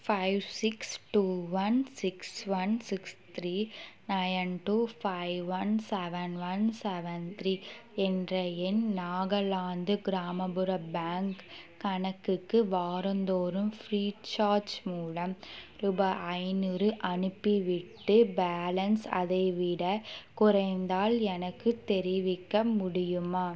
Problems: constant background noise